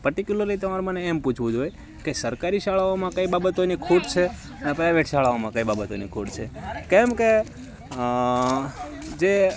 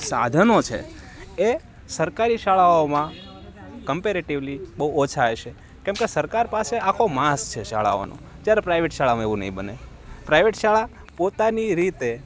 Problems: constant background noise